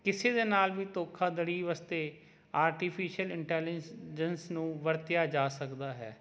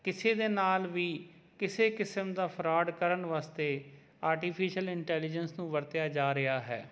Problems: none marked